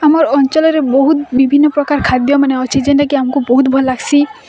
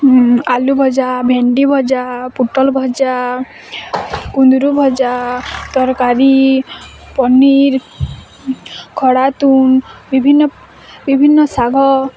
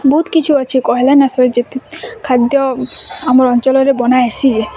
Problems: constant background noise